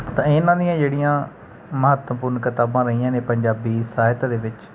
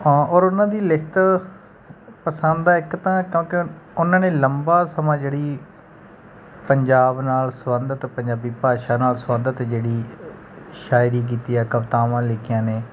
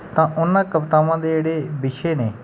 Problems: none marked